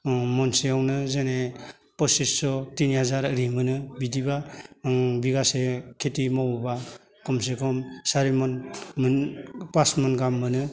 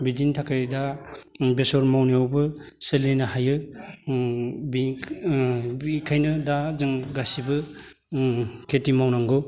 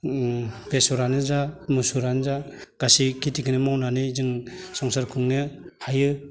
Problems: none marked